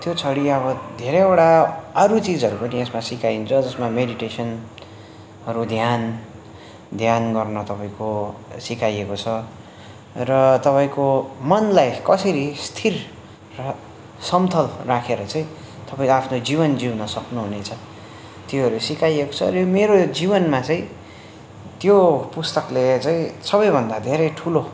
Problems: none marked